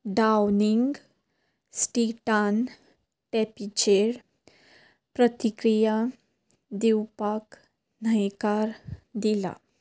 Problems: background sounds at intervals